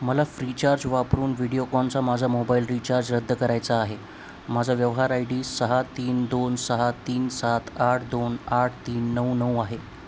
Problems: constant background noise